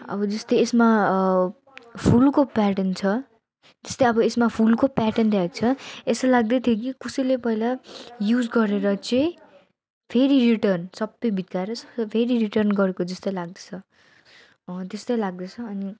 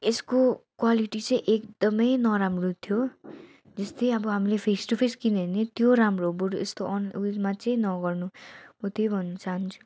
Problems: none marked